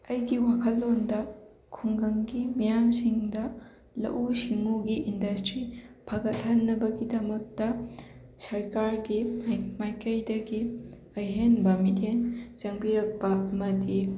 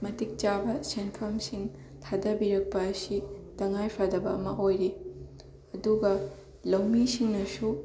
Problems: constant background noise, continuous background conversations